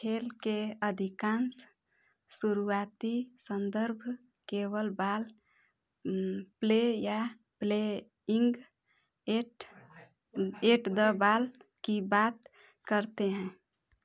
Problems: background sounds at intervals